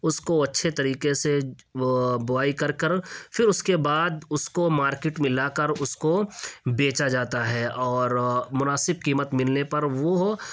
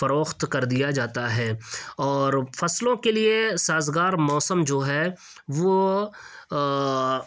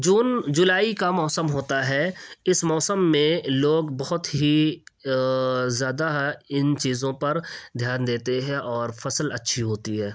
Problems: none marked